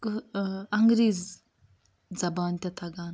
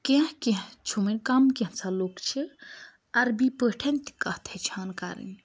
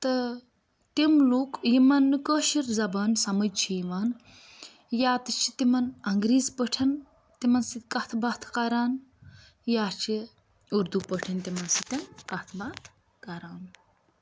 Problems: none marked